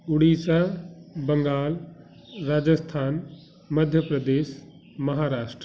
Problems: constant background noise